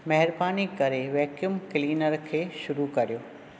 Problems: none marked